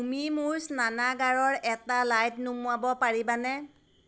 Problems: constant background noise